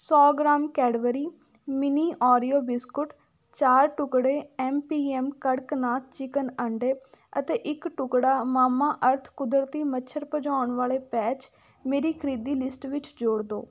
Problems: none marked